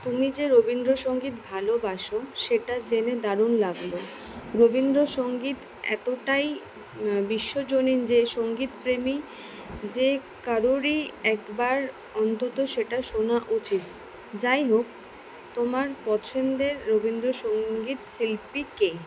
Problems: none marked